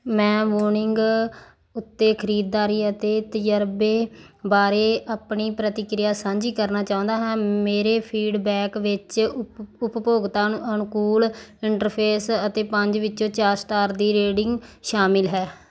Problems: background sounds at intervals